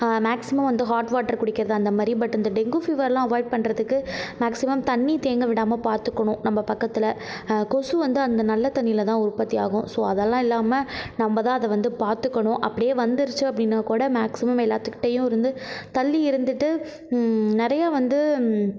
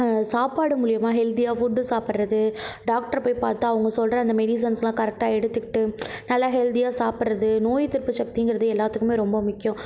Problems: none marked